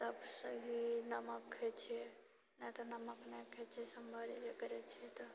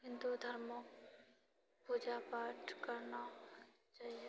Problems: low volume